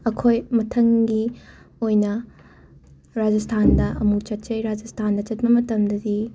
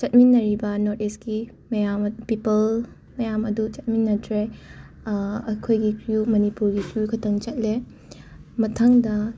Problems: background sounds at intervals, background conversations at intervals